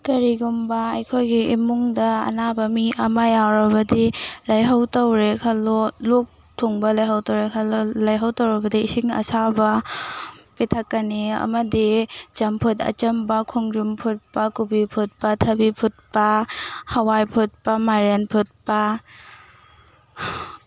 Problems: background sounds at intervals